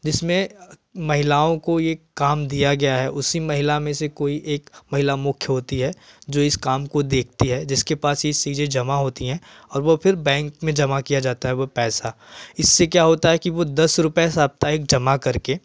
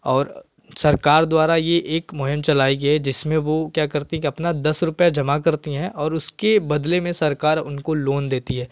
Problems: none marked